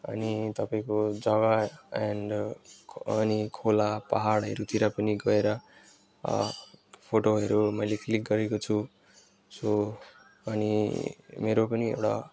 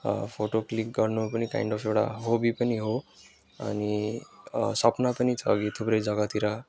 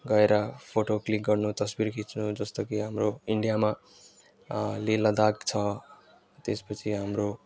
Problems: constant background noise